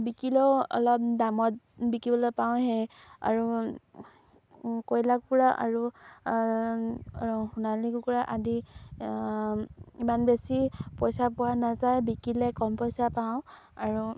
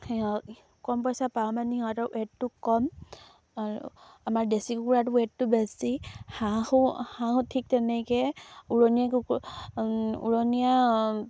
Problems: low volume